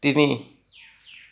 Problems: none marked